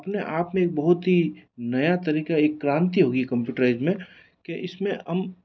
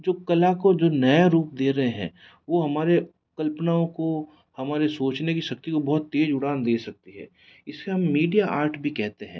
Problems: none marked